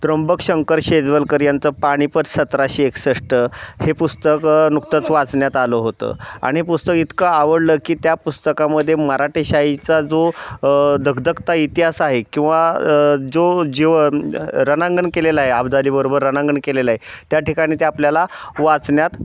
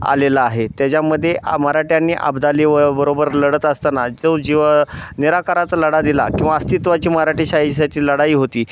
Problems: none marked